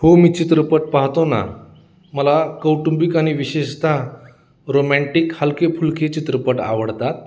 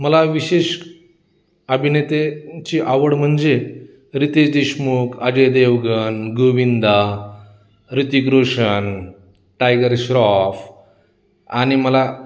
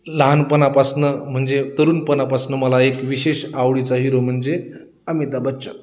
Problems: constant background noise